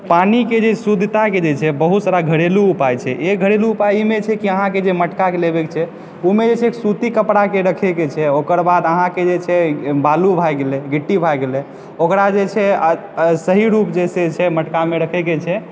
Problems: background sounds at intervals, background conversations at intervals